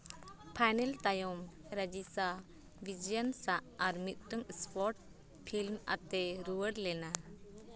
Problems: constant background noise, background conversations at intervals